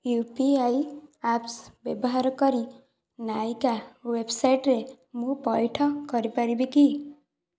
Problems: none marked